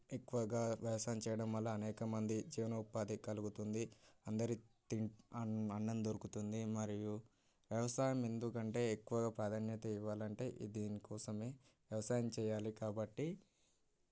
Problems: background sounds at intervals, low volume